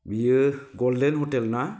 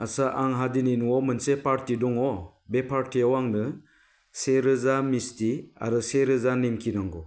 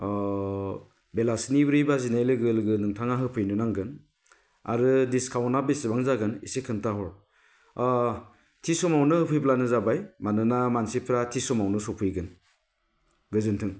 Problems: none marked